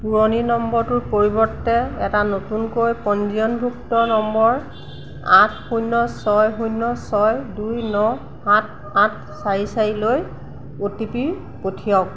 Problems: none marked